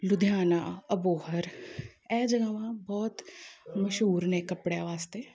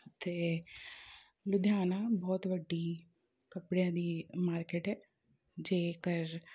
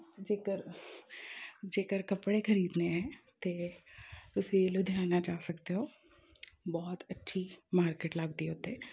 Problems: background conversations at intervals